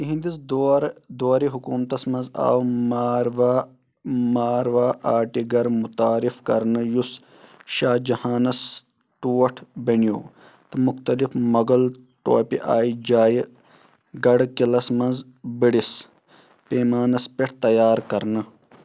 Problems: background sounds at intervals